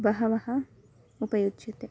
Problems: constant background noise